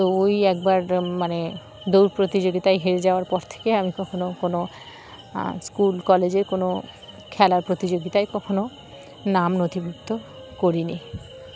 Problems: constant background noise, background conversations at intervals